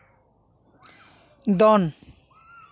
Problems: continuous background conversations